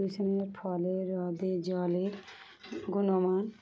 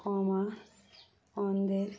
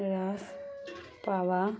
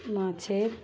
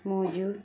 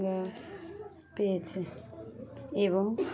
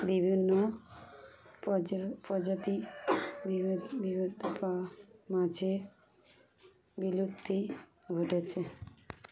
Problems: none marked